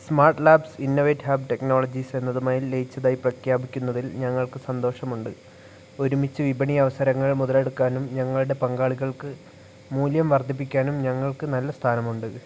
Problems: none marked